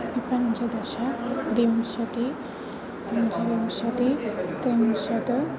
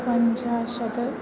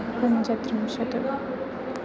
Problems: constant background noise, continuous background conversations